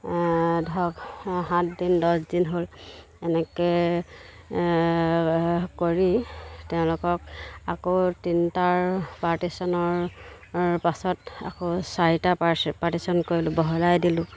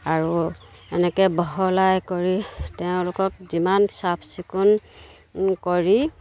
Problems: none marked